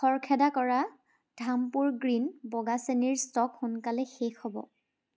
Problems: background sounds at intervals